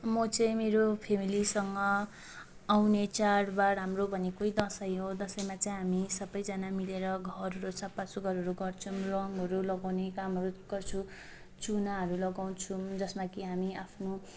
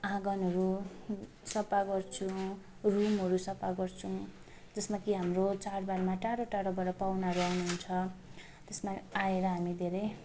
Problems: constant background noise, background conversations at intervals